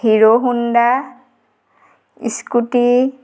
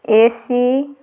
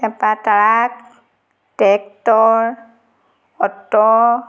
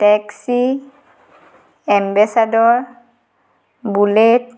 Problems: none marked